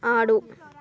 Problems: background conversations at intervals